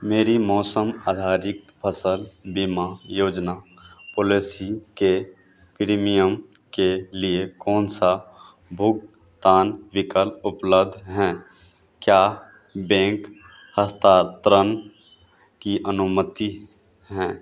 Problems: constant background noise